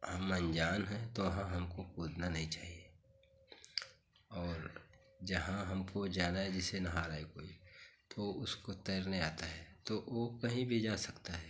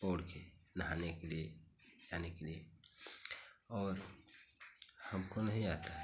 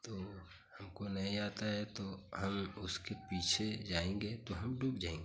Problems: none marked